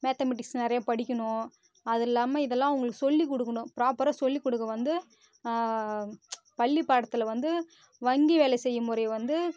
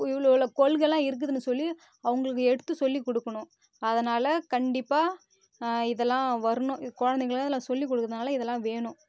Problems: constant background noise